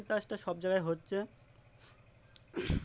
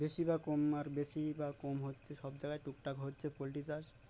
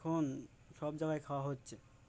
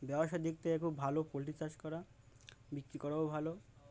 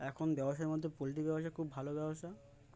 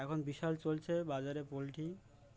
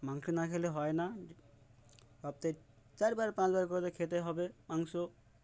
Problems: background sounds at intervals, background conversations at intervals